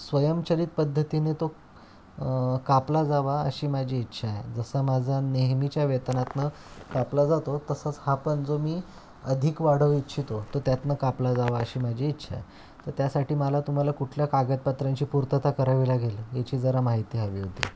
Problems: constant background noise